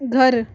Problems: none marked